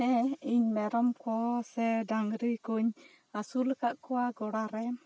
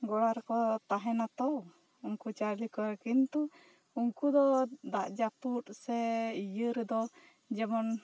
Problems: none marked